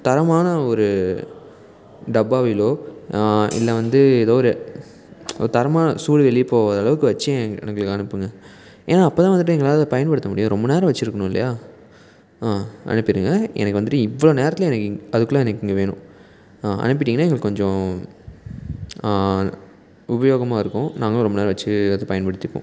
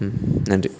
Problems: background sounds at intervals